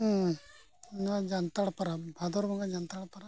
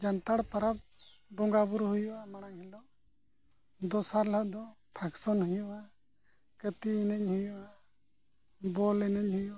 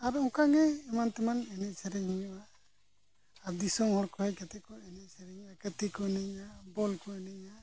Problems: constant background noise, low volume